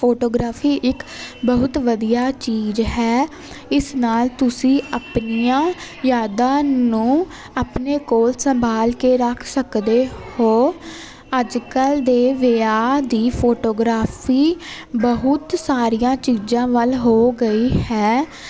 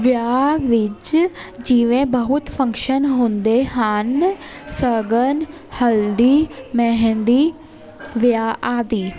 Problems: constant background noise